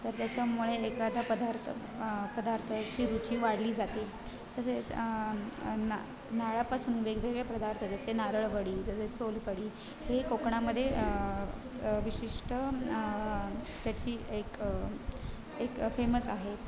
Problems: constant background noise, continuous background conversations